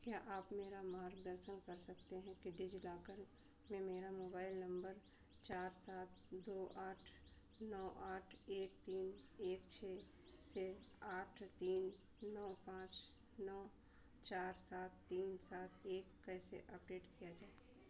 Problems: constant background noise, low volume